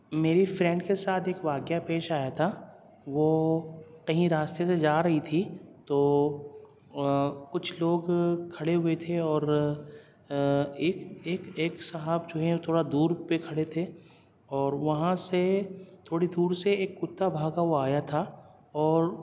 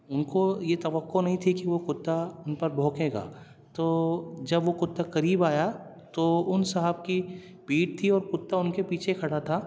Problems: none marked